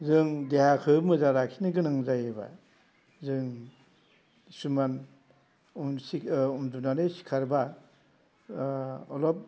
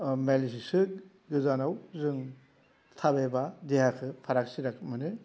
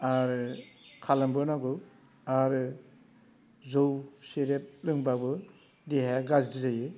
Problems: constant background noise